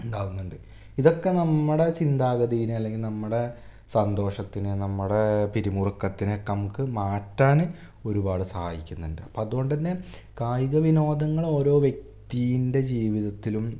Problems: none marked